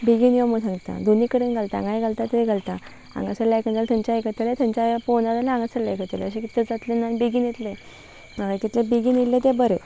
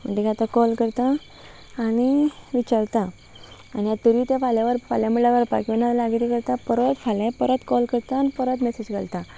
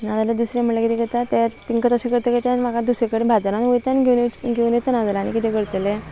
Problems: background sounds at intervals